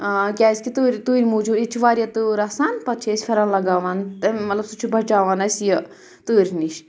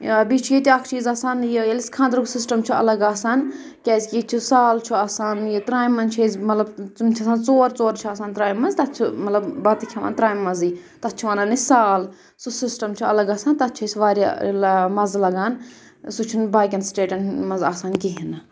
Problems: none marked